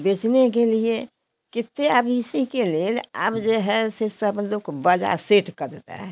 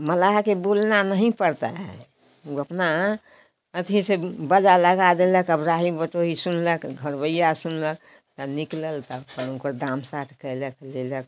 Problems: background sounds at intervals